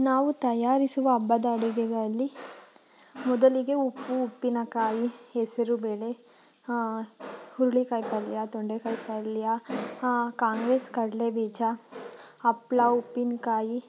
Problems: background sounds at intervals